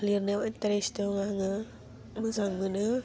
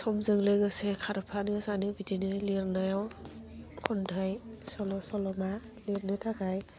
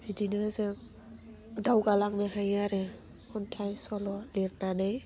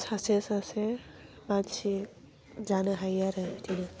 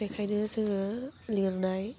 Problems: low volume